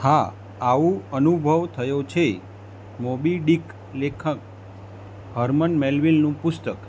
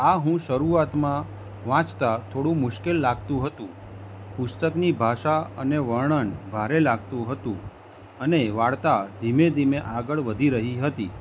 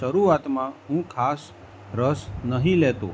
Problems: none marked